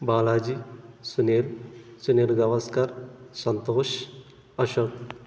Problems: constant background noise